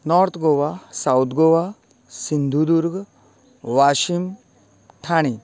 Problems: constant background noise